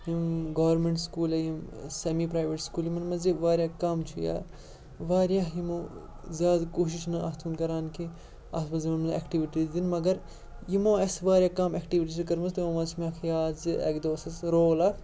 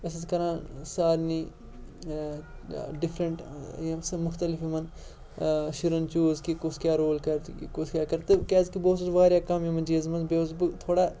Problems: background sounds at intervals, background conversations at intervals